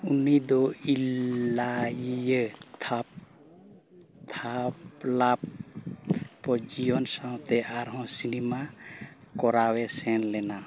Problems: background conversations at intervals